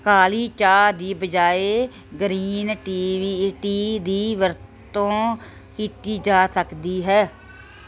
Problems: none marked